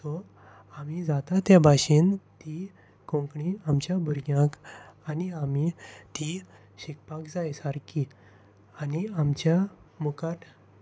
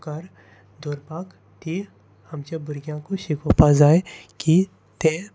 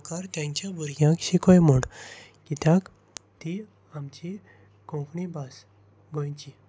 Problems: constant background noise